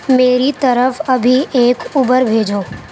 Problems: constant background noise